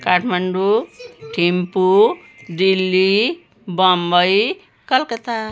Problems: background sounds at intervals